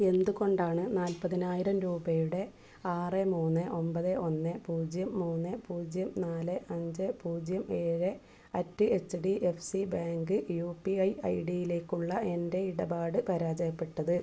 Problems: background sounds at intervals, low volume